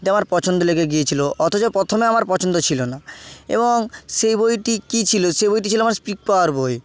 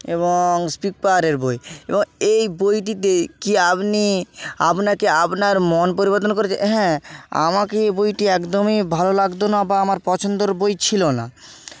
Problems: constant background noise